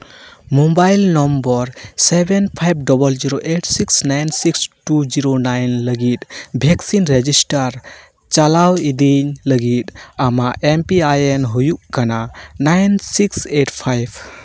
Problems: background sounds at intervals